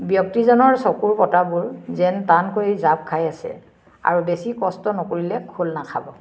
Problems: constant background noise